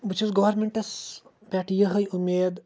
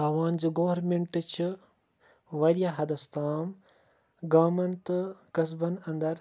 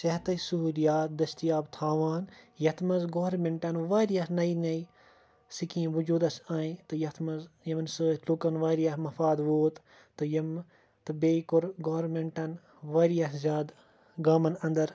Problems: background sounds at intervals